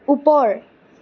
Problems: none marked